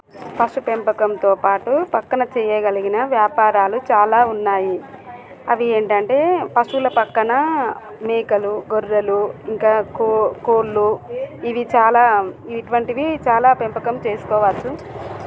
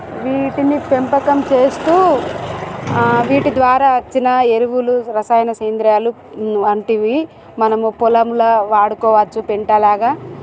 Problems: constant background noise